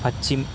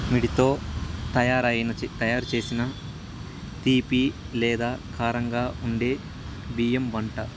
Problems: constant background noise